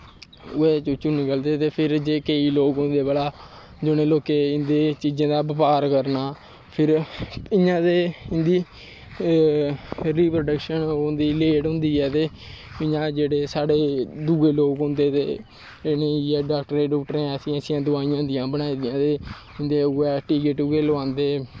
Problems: constant background noise, low volume